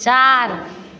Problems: none marked